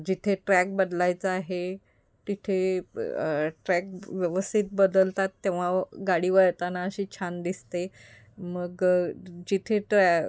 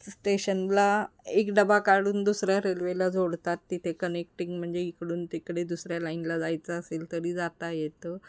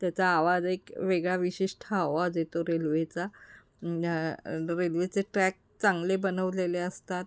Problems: none marked